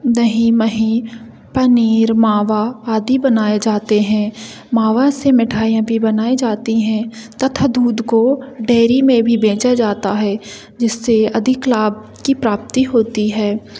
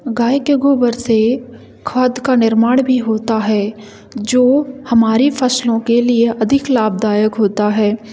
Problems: none marked